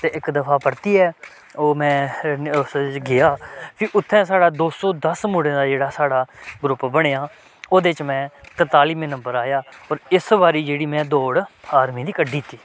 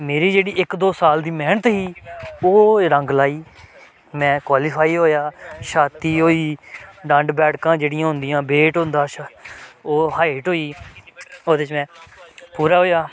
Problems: background sounds at intervals